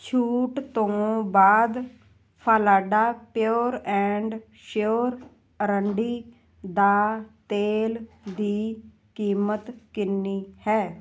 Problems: none marked